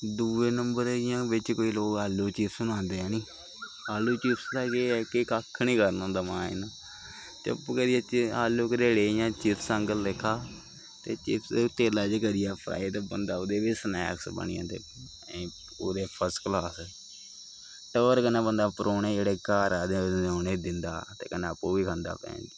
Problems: constant background noise